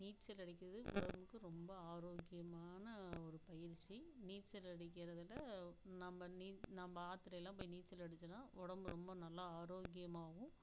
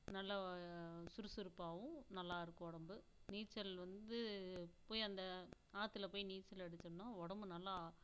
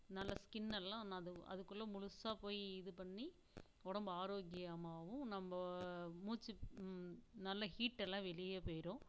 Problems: low volume